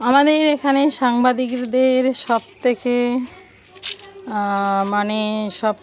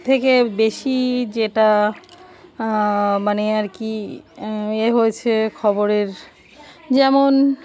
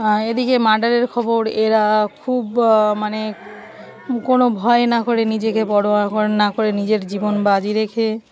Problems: background sounds at intervals, background conversations at intervals